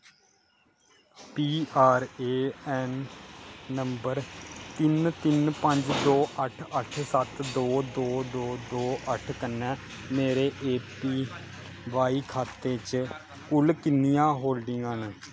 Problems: constant background noise